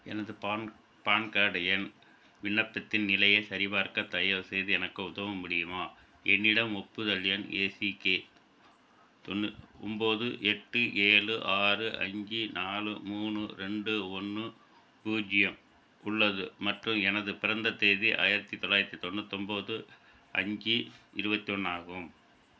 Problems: constant background noise